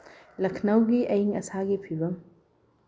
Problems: low volume